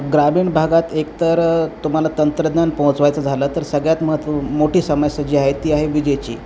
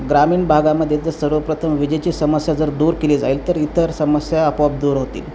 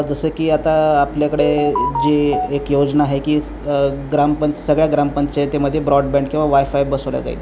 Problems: none marked